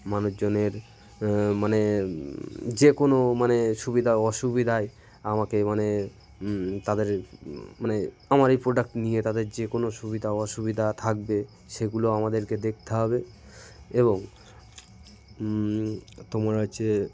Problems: constant background noise, continuous background conversations